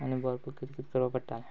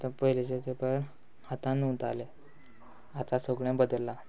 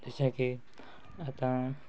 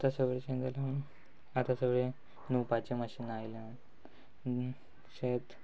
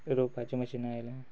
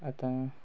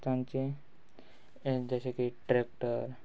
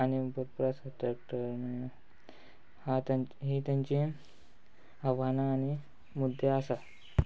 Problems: background sounds at intervals